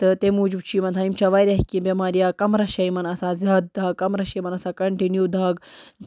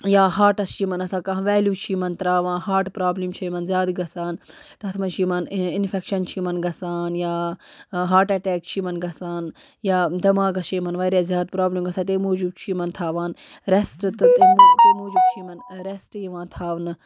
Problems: constant background noise